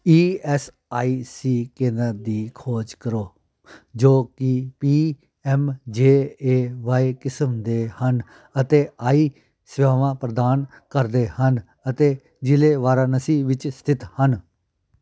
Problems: background conversations at intervals